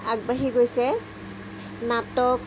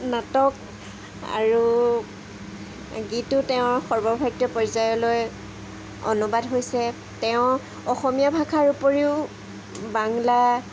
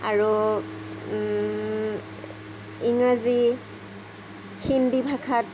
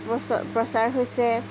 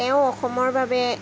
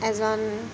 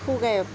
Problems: constant background noise